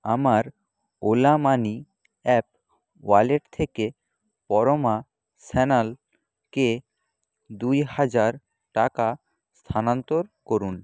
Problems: none marked